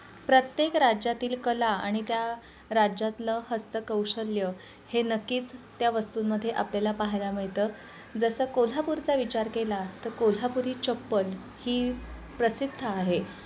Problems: constant background noise, continuous background conversations